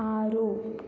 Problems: low volume